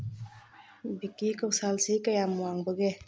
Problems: low volume